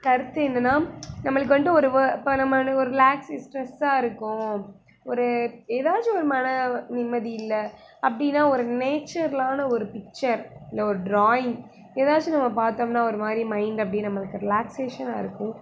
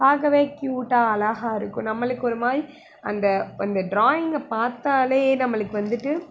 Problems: constant background noise